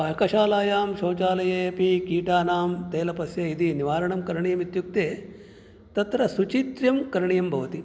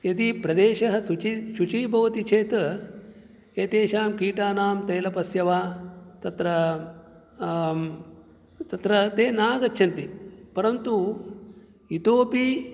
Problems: none marked